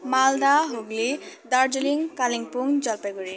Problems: continuous background conversations